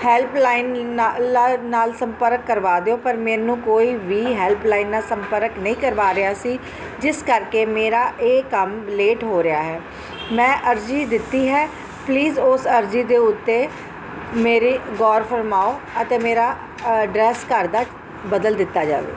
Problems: none marked